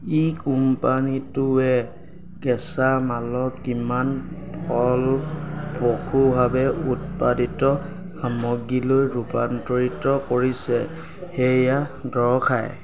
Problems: none marked